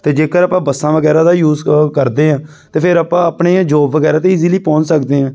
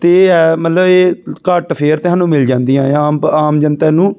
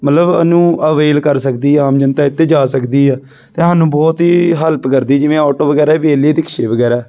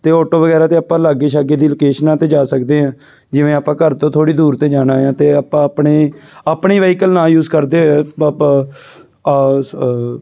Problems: background sounds at intervals